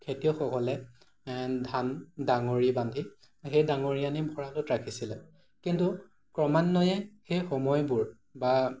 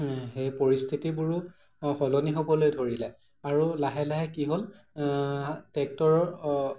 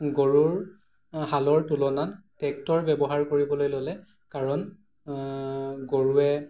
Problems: none marked